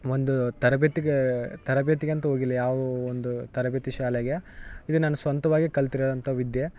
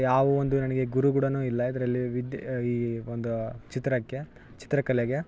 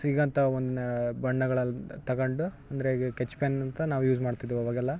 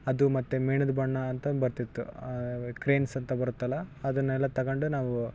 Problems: background sounds at intervals